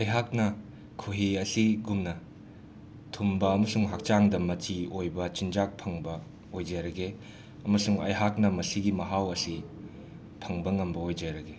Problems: constant background noise, background conversations at intervals